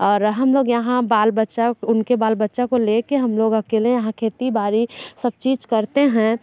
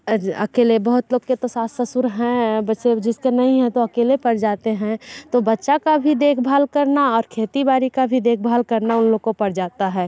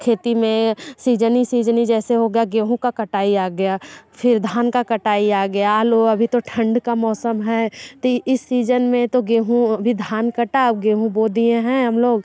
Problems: none marked